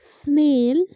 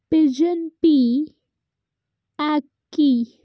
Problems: none marked